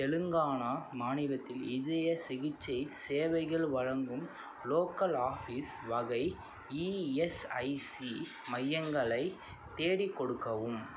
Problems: none marked